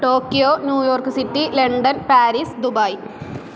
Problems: constant background noise